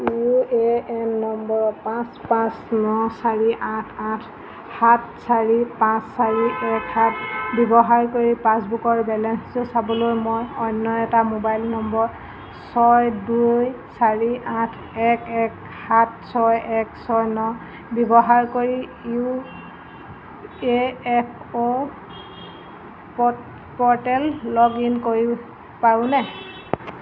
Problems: constant background noise